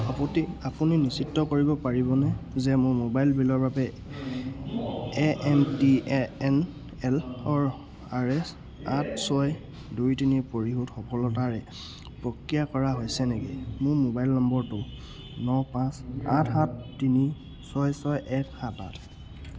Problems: none marked